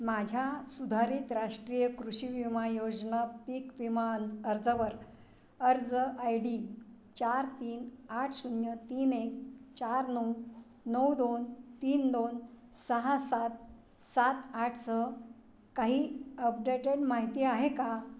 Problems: background sounds at intervals